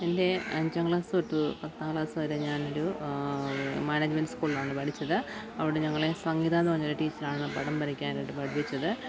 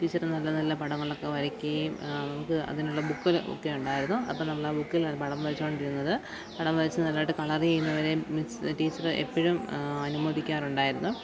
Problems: background sounds at intervals, low volume